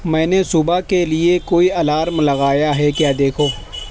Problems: constant background noise